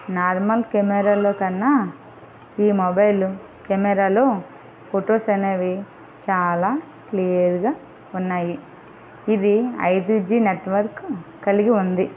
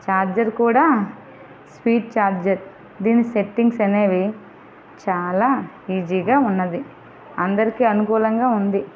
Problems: constant background noise, background conversations at intervals